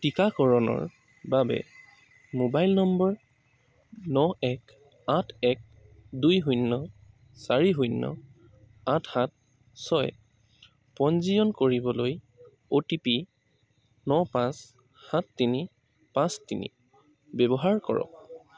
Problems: background sounds at intervals